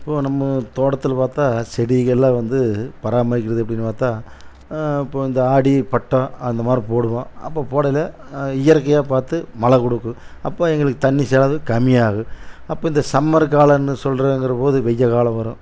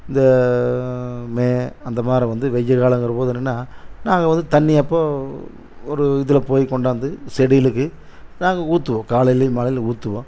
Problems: constant background noise